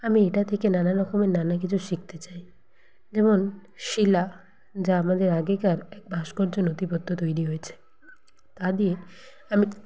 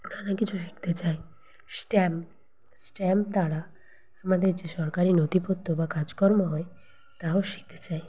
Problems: none marked